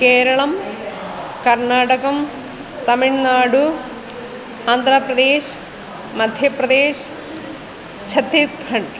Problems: constant background noise, continuous background conversations